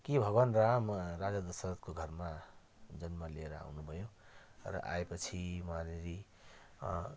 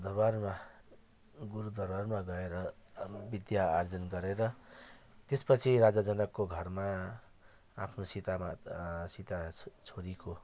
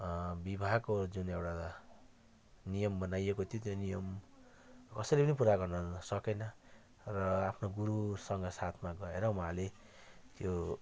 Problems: continuous background conversations